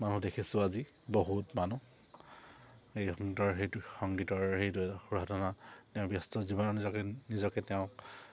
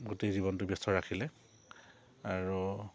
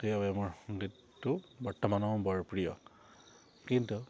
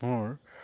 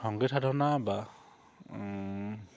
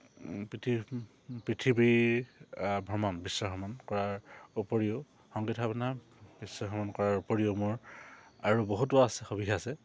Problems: none marked